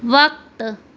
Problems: constant background noise